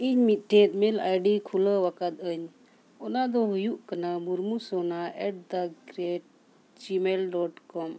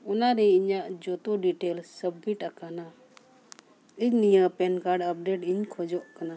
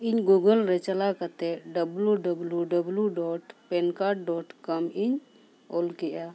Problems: background sounds at intervals